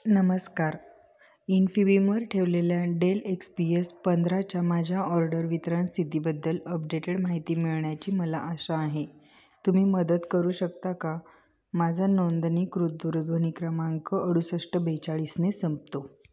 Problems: constant background noise